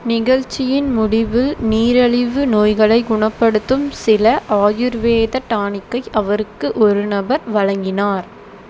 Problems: constant background noise